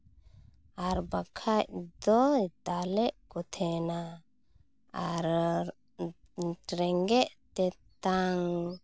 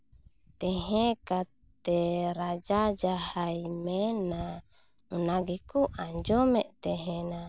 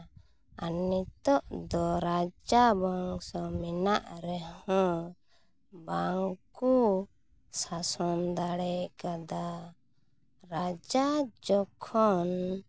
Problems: constant background noise